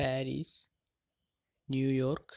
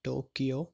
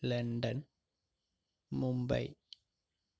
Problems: low volume